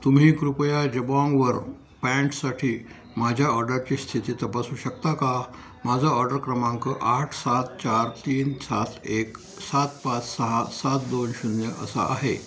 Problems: constant background noise